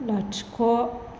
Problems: constant background noise